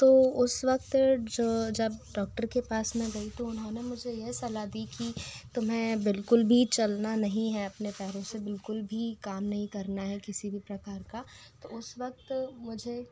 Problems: constant background noise